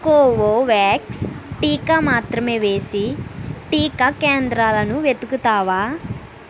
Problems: none marked